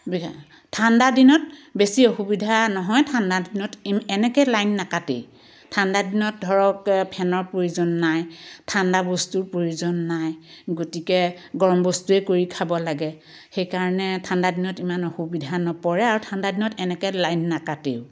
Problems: background sounds at intervals